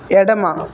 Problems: constant background noise